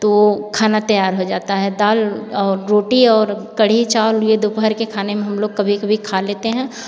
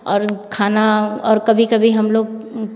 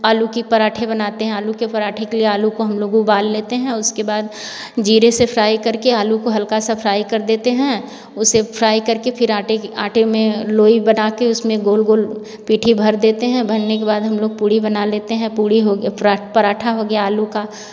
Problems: none marked